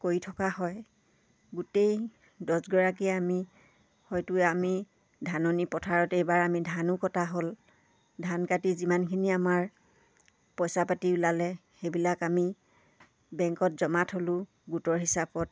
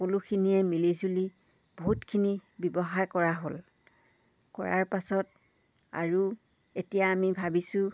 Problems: none marked